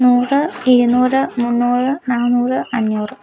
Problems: low volume